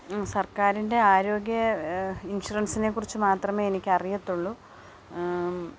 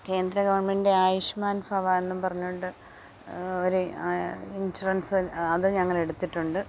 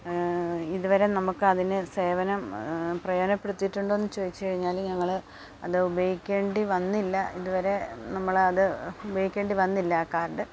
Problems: background sounds at intervals